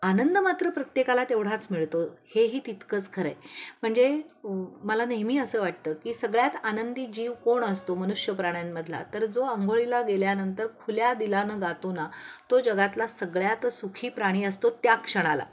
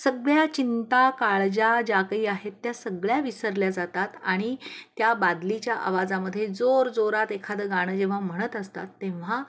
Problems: constant background noise, background conversations at intervals